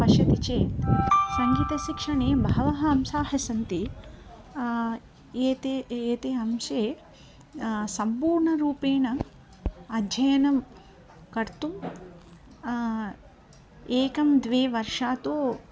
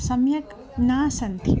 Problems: background sounds at intervals